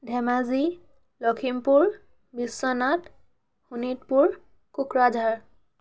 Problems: constant background noise